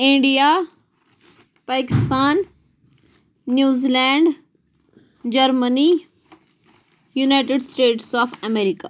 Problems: background sounds at intervals